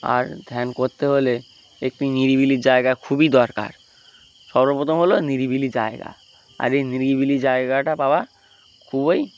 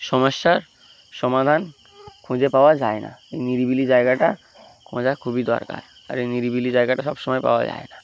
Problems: constant background noise